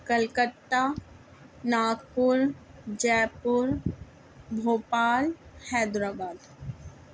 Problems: constant background noise